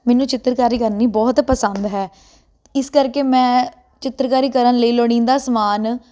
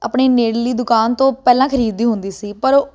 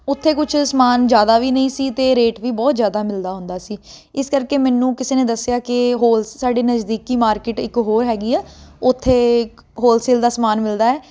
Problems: constant background noise